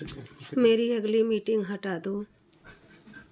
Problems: background sounds at intervals